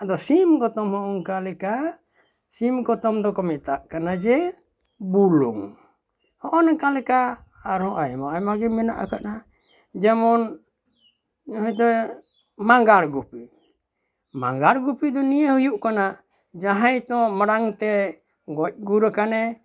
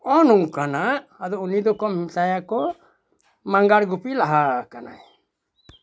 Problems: none marked